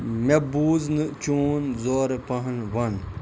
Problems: constant background noise